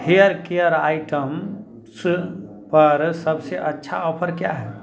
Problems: continuous background conversations